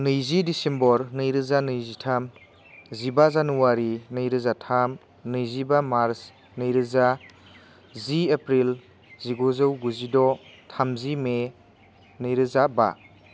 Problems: constant background noise